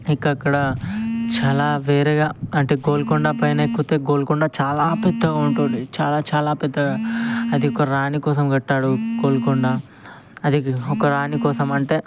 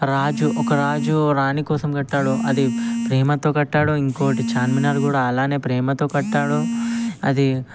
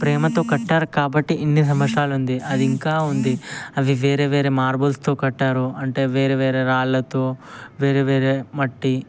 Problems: constant background noise